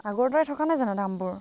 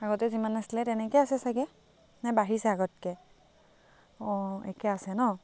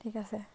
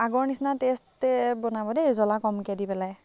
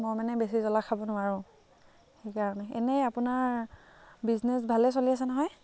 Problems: background conversations at intervals